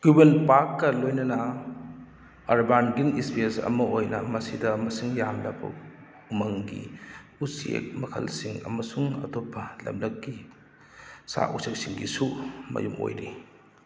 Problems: background sounds at intervals